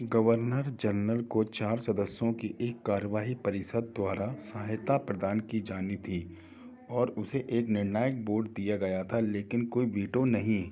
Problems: background sounds at intervals